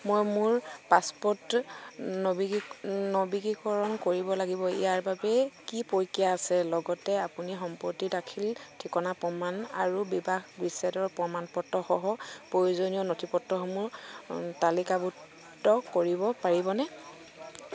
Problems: none marked